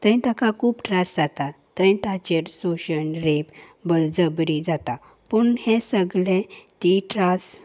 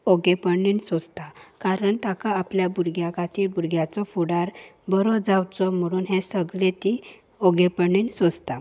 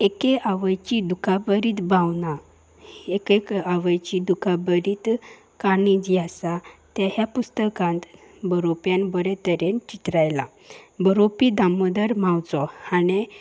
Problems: background sounds at intervals